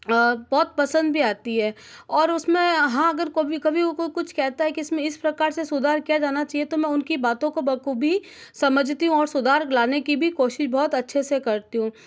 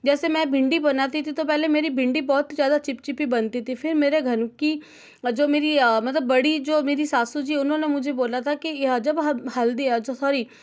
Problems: none marked